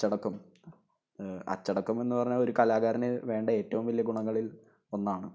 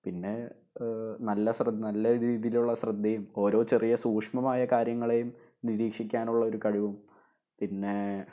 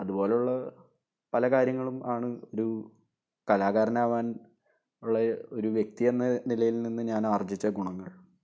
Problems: low volume